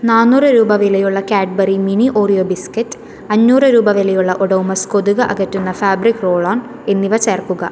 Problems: none marked